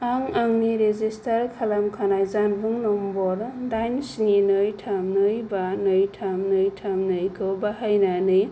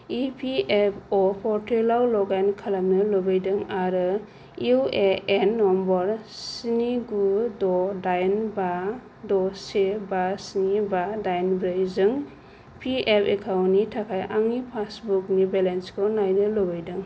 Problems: low volume